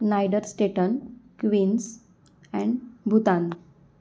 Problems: none marked